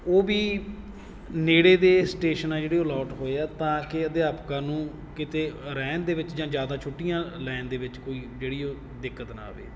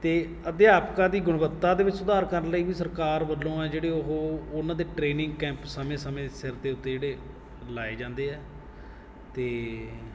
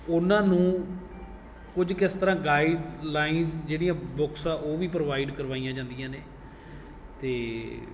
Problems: background sounds at intervals